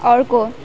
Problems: background sounds at intervals